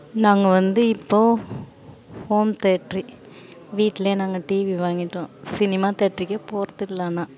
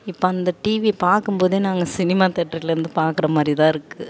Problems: none marked